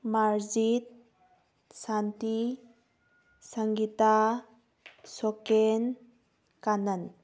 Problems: background sounds at intervals